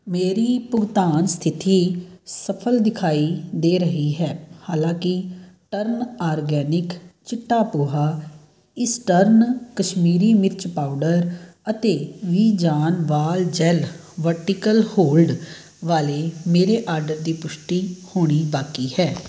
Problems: background sounds at intervals